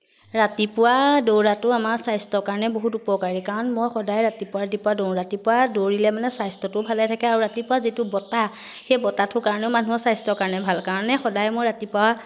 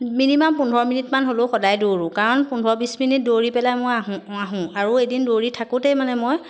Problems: constant background noise